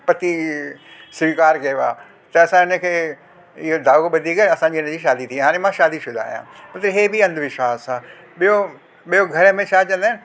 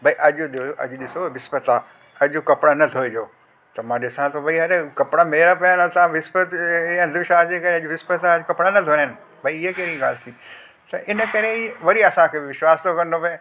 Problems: constant background noise